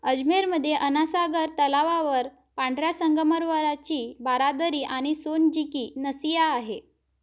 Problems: none marked